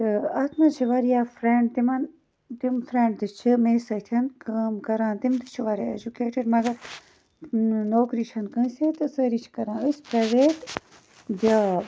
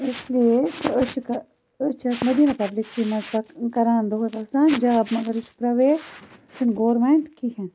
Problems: background sounds at intervals